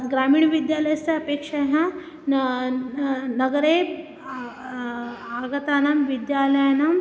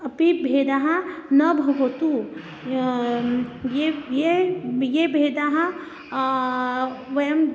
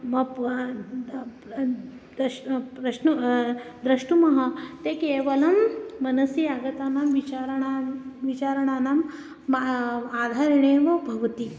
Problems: constant background noise